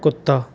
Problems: background sounds at intervals